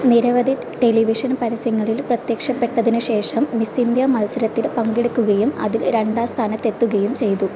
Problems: constant background noise